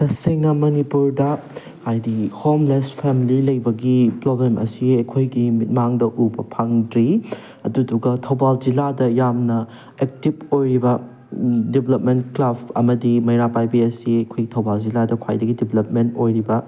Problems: none marked